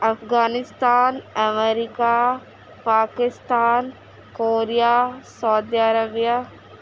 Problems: constant background noise